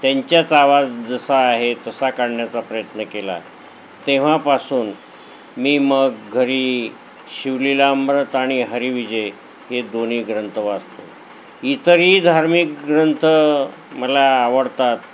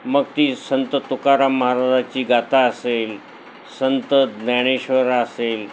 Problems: none marked